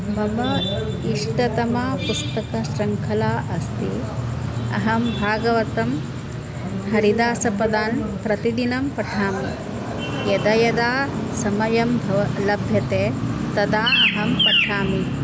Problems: background sounds at intervals